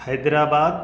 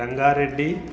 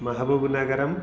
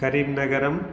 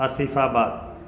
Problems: constant background noise